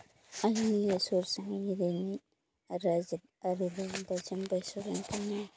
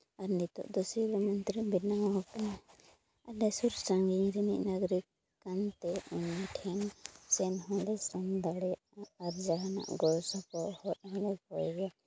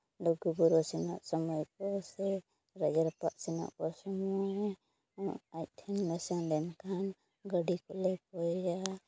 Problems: low volume